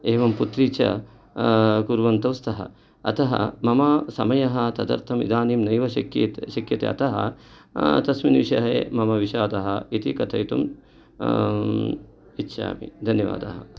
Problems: none marked